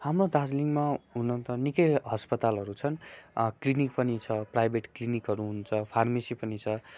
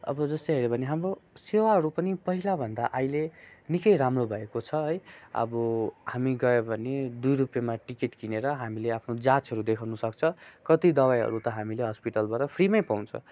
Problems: constant background noise